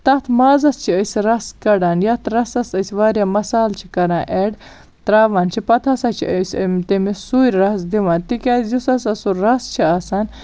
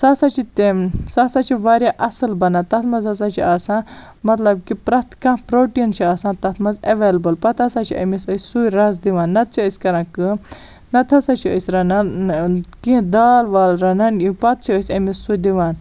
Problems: none marked